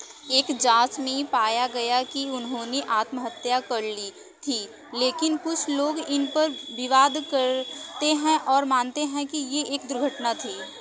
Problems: background sounds at intervals, continuous background conversations